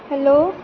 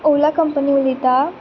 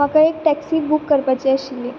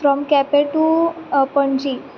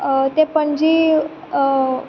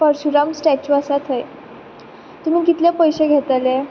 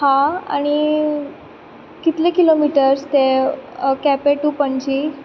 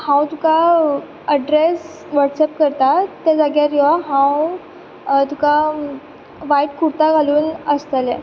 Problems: none marked